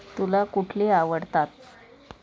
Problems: constant background noise